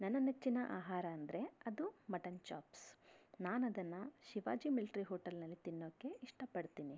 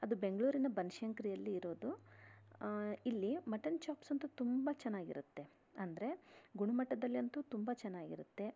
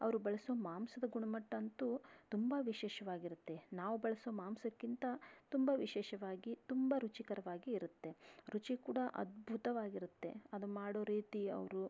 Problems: none marked